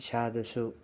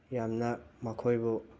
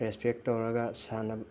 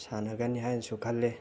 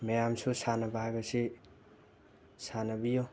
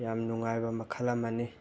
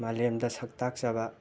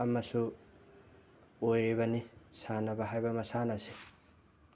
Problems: background sounds at intervals